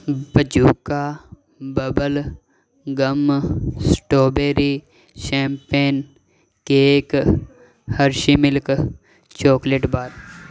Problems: none marked